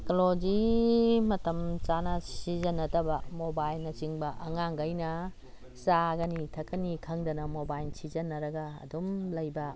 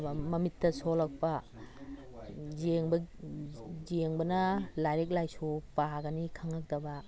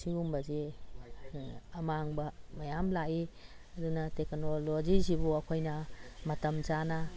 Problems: background sounds at intervals